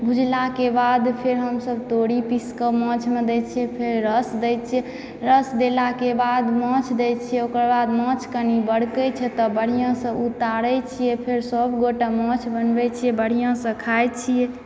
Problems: background sounds at intervals, background conversations at intervals